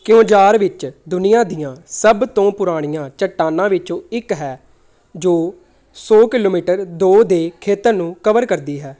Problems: background conversations at intervals